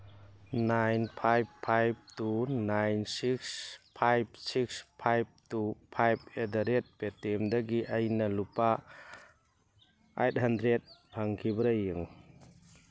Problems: none marked